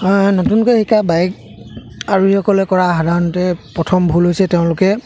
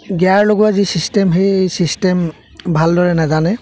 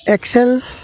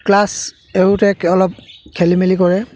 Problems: constant background noise, background conversations at intervals